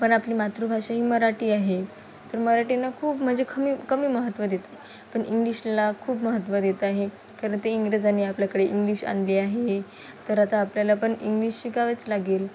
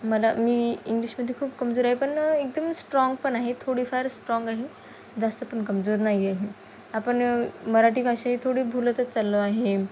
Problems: none marked